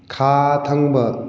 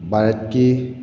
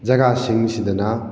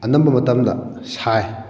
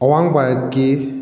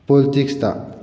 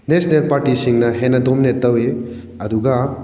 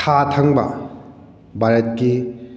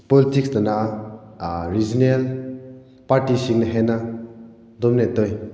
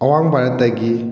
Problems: background conversations at intervals